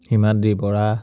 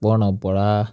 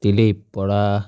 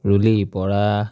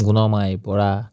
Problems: none marked